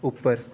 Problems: none marked